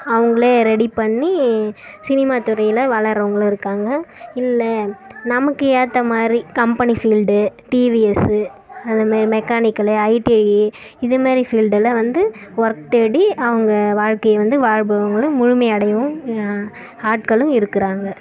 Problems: background sounds at intervals